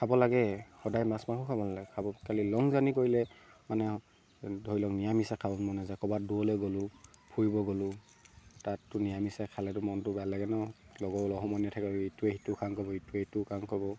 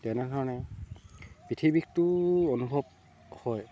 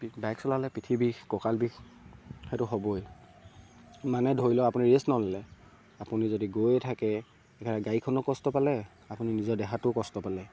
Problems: none marked